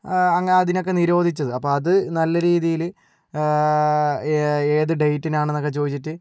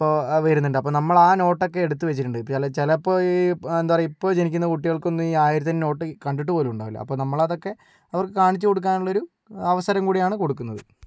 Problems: none marked